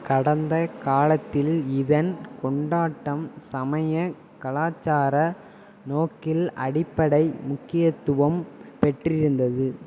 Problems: constant background noise